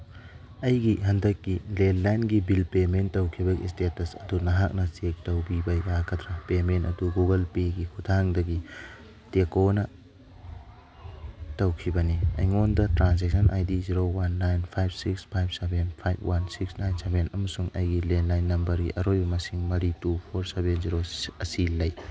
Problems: background sounds at intervals